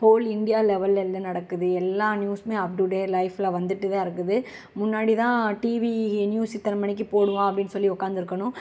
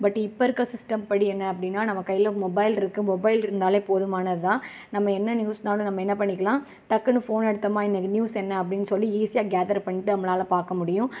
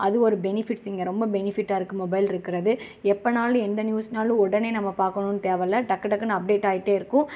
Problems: none marked